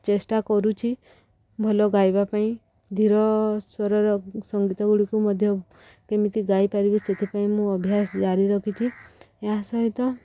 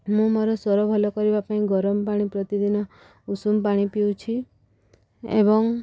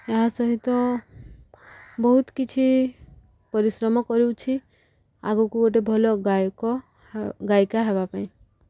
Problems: background sounds at intervals